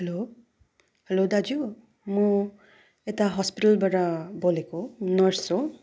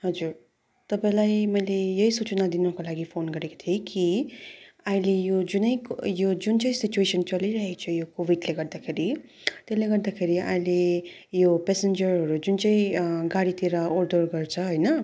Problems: background sounds at intervals